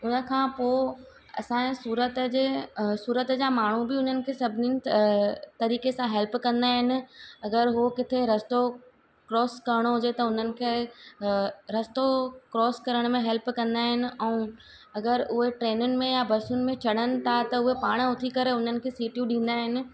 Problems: constant background noise, echo